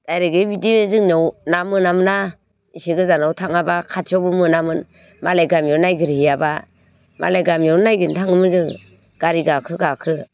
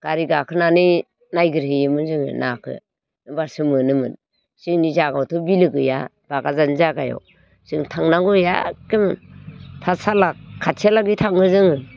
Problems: constant background noise